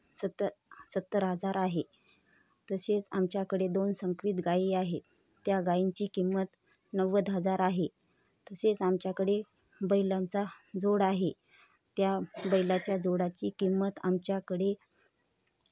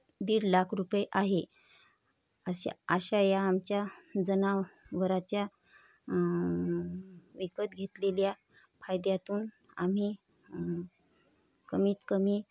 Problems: none marked